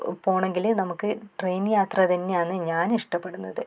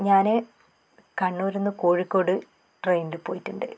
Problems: none marked